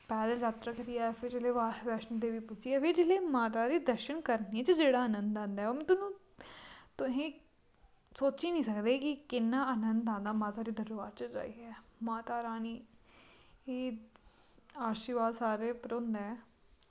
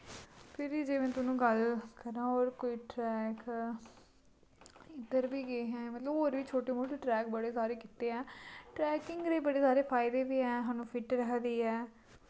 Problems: constant background noise